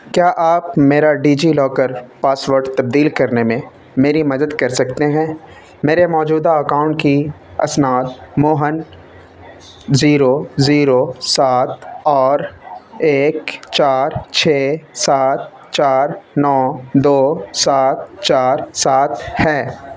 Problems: constant background noise